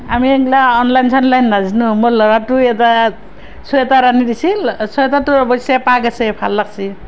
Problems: none marked